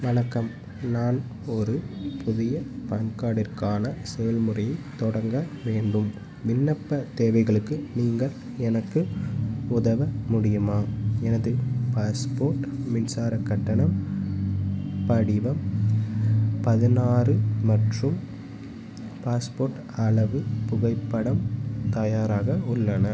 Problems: background sounds at intervals